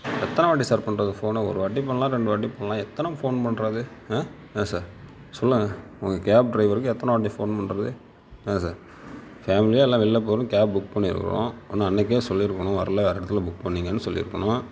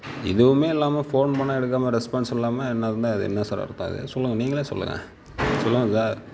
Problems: background sounds at intervals